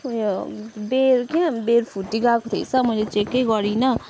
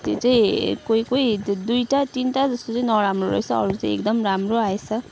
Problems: constant background noise